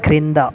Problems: none marked